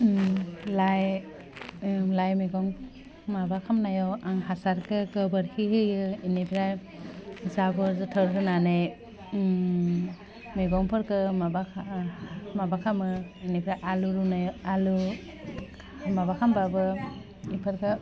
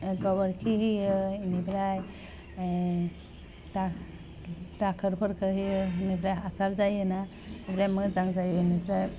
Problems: low volume